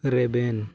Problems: none marked